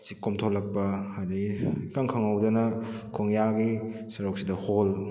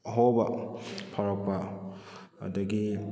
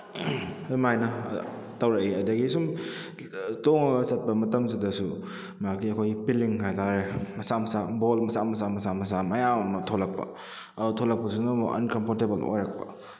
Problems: background sounds at intervals